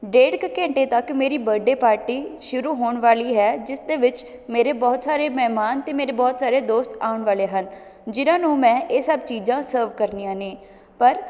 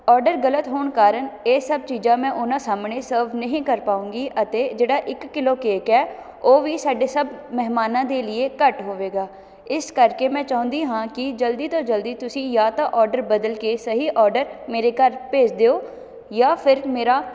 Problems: none marked